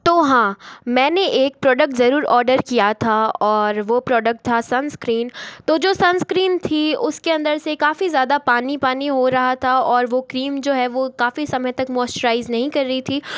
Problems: background sounds at intervals